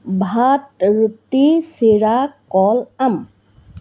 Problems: none marked